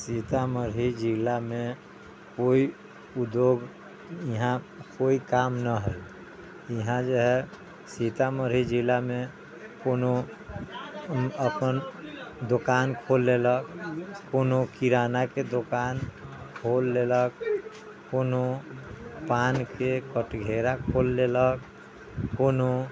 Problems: background sounds at intervals